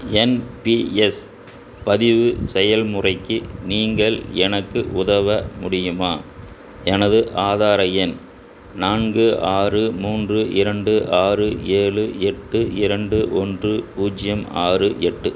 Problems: constant background noise